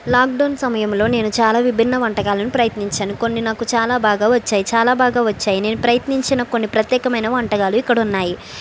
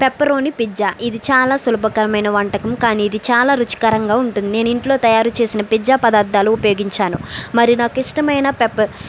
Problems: none marked